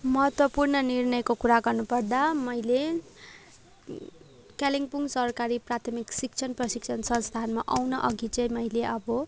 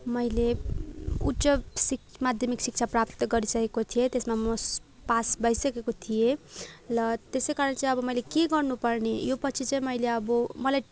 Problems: none marked